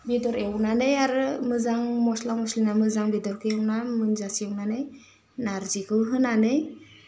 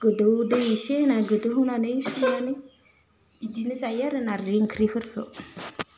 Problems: low volume